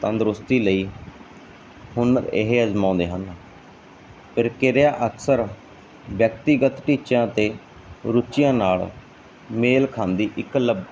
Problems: none marked